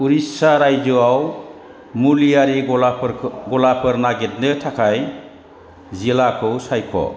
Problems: constant background noise